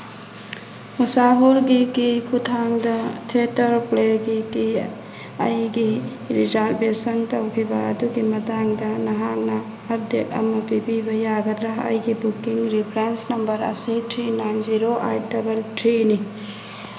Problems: background sounds at intervals